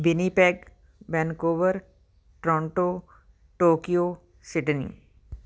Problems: background sounds at intervals